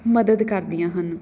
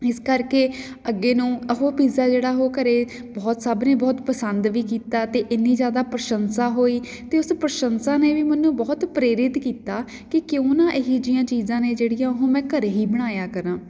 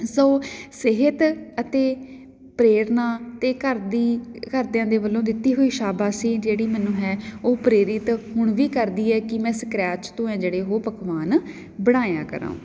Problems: background sounds at intervals